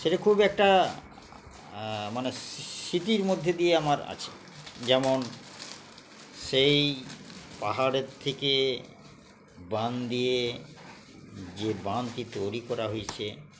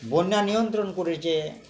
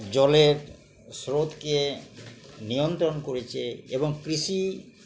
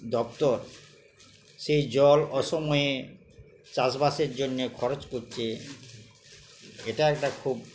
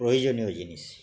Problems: none marked